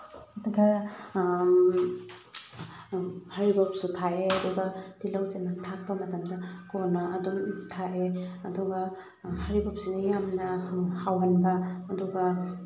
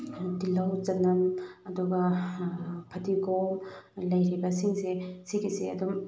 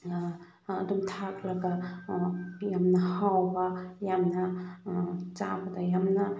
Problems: background sounds at intervals